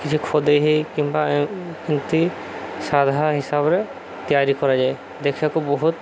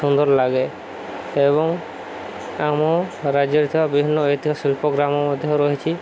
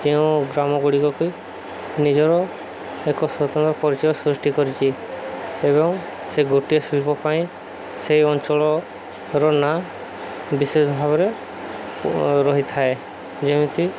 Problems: constant background noise